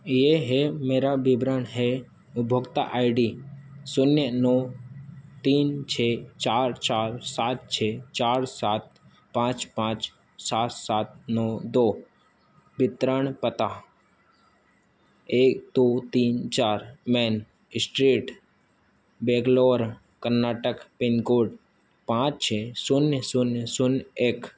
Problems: constant background noise